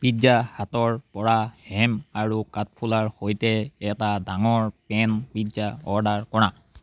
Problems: background sounds at intervals